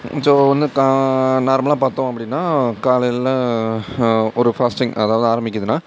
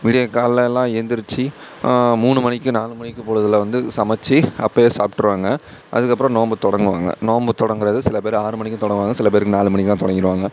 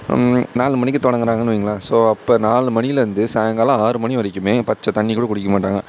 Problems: none marked